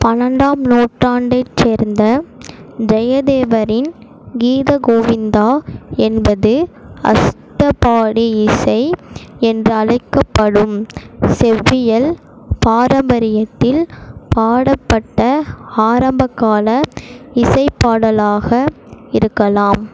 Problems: constant background noise